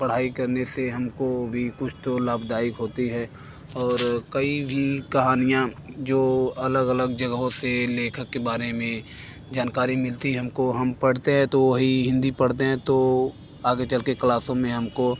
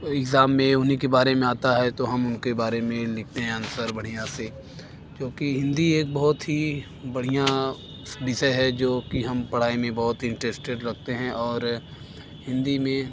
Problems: constant background noise